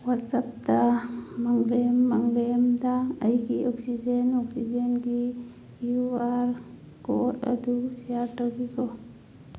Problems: constant background noise, low volume